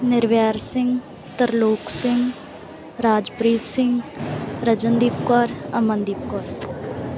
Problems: background sounds at intervals